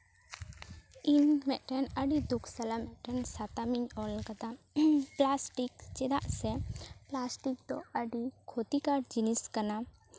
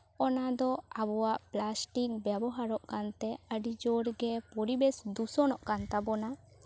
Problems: constant background noise, background conversations at intervals